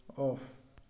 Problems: low volume